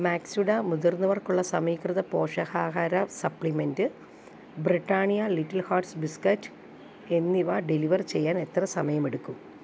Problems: none marked